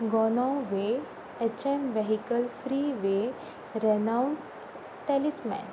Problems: constant background noise